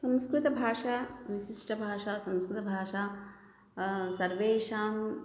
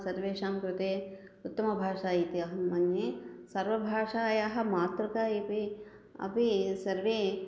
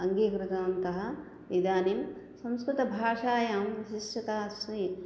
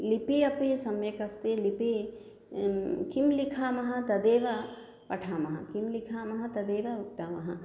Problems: none marked